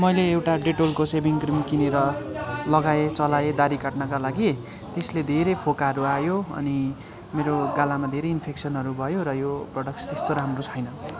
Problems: continuous background conversations